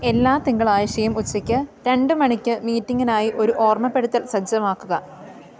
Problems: none marked